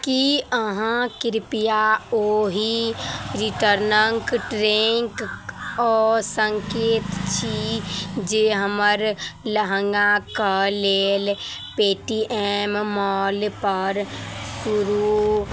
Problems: none marked